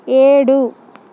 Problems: constant background noise